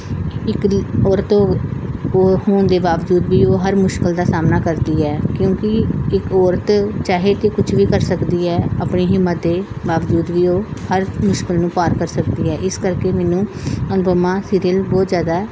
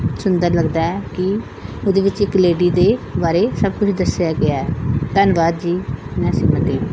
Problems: background sounds at intervals, background conversations at intervals